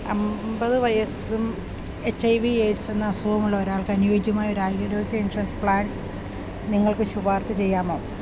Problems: none marked